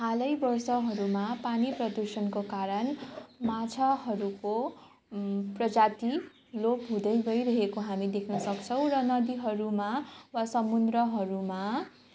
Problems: constant background noise